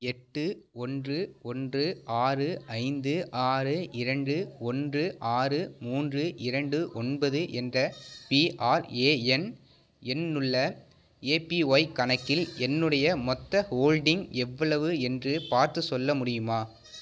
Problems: none marked